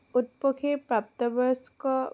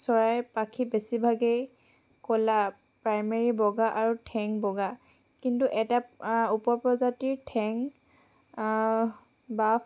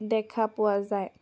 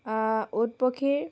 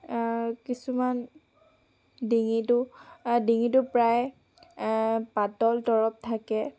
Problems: none marked